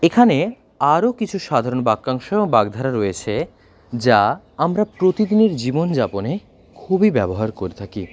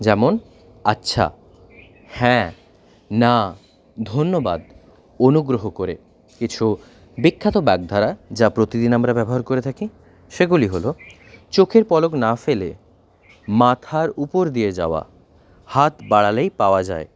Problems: background sounds at intervals